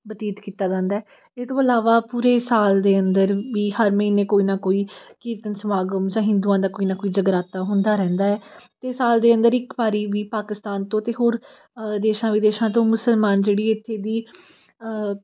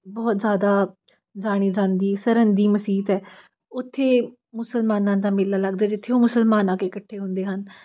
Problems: background sounds at intervals